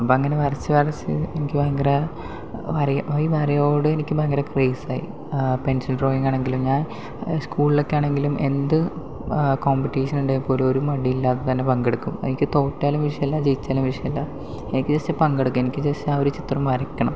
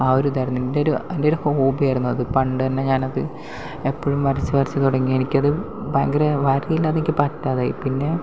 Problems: none marked